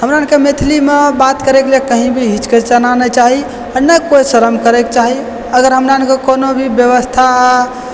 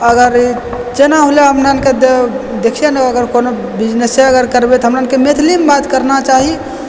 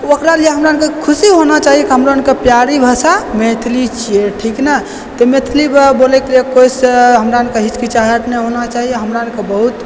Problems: constant background noise